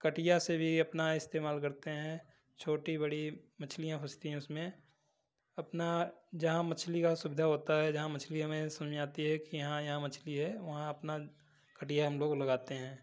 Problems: background sounds at intervals